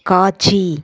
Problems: none marked